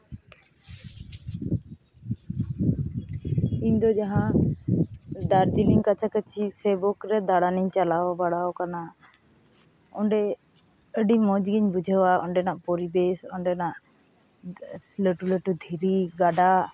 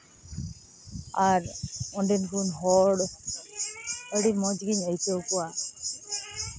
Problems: background sounds at intervals